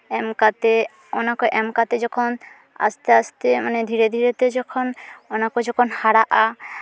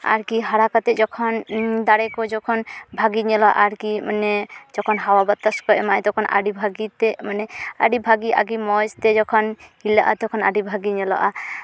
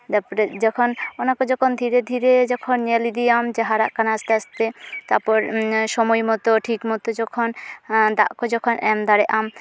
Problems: background conversations at intervals